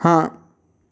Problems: constant background noise, echo